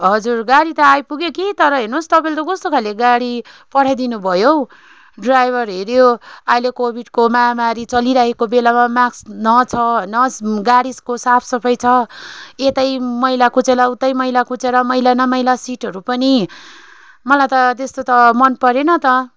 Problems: constant background noise